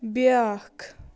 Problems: constant background noise